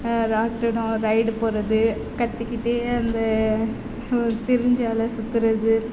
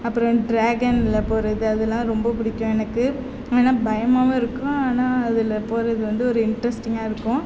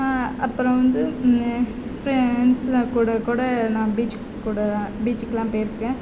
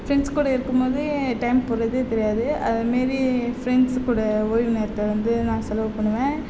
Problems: background conversations at intervals